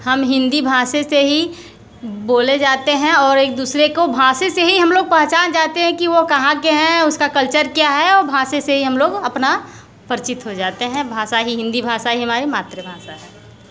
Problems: constant background noise